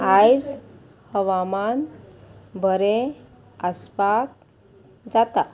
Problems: constant background noise